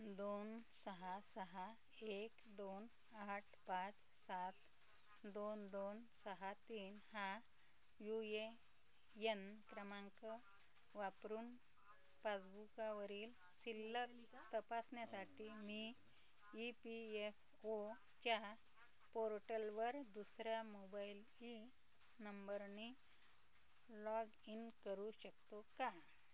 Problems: constant background noise, continuous background conversations, low volume